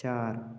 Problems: constant background noise